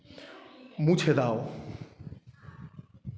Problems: continuous background conversations